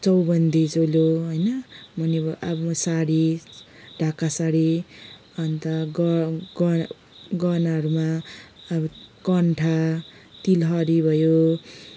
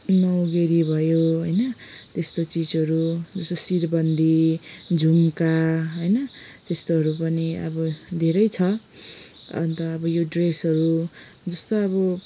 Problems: background sounds at intervals